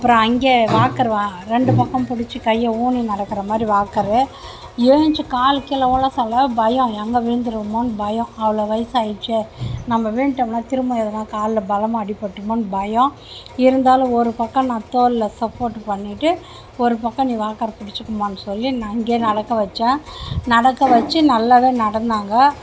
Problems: constant background noise